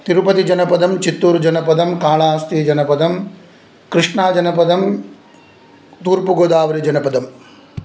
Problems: none marked